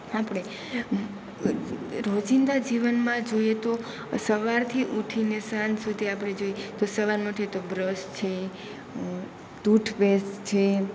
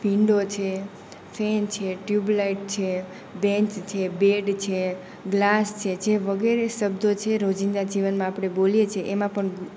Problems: none marked